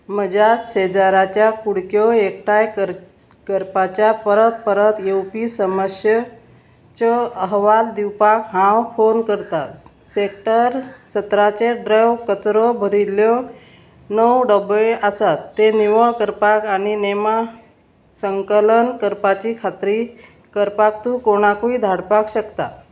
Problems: constant background noise